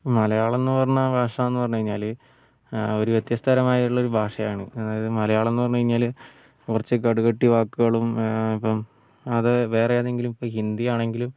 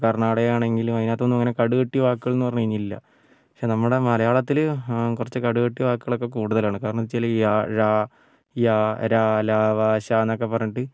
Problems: none marked